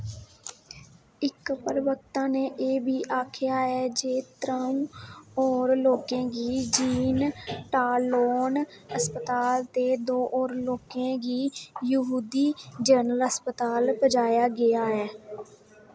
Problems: echo